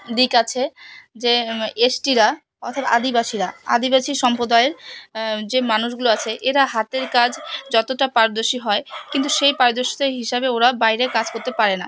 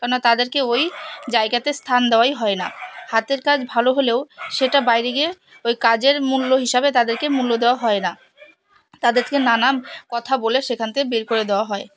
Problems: constant background noise